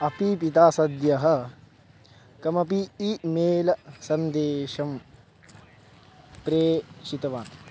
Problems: background sounds at intervals